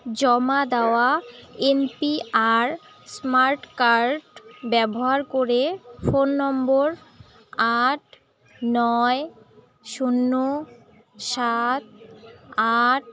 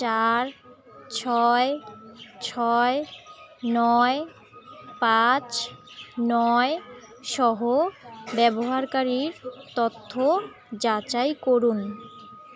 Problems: constant background noise, continuous background conversations